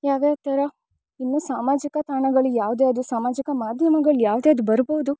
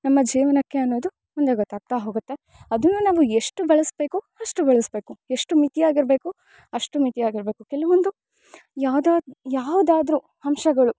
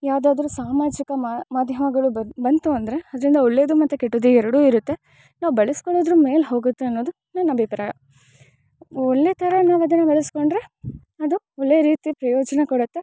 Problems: none marked